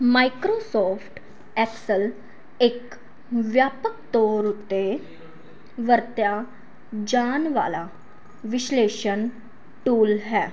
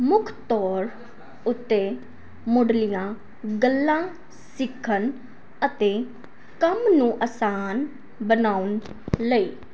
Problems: constant background noise